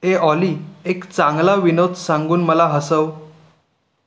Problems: background sounds at intervals